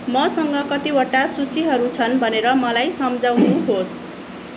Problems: constant background noise, background conversations at intervals